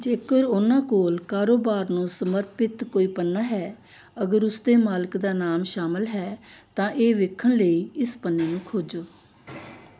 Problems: background sounds at intervals